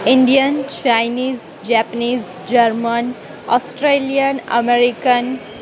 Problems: constant background noise